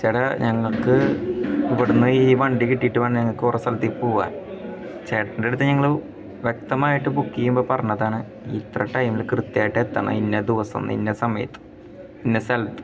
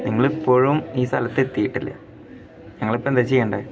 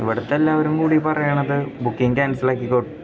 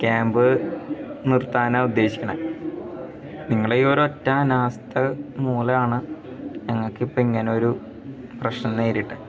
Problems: background sounds at intervals, background conversations at intervals